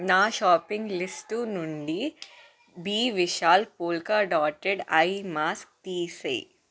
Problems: constant background noise, background conversations at intervals